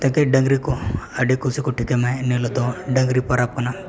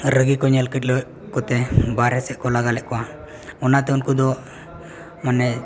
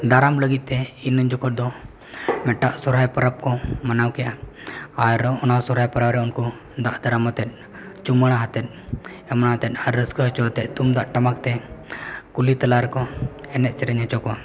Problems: background conversations at intervals